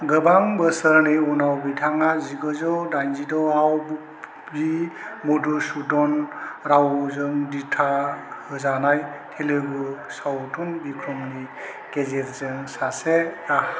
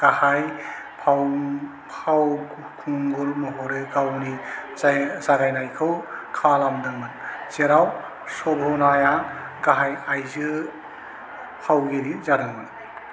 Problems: constant background noise